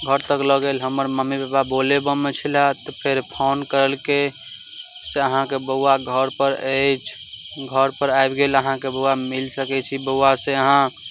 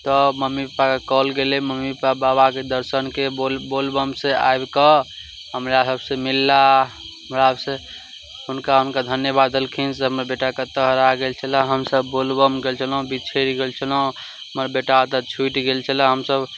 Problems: none marked